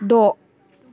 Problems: background sounds at intervals